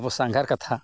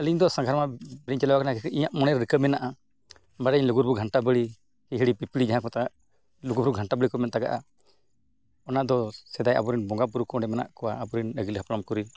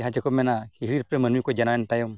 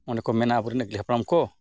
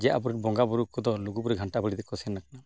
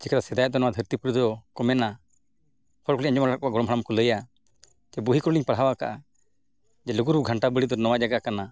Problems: constant background noise